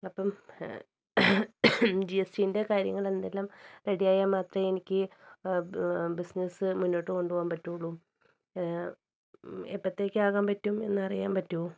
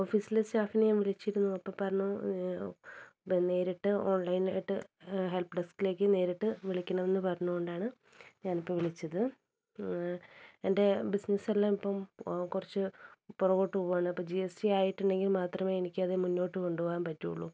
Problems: low volume